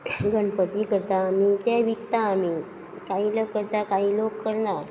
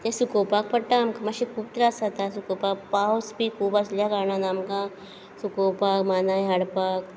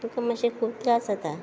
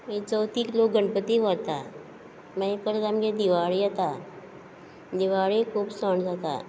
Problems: none marked